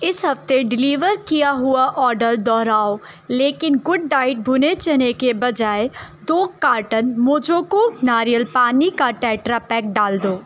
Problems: none marked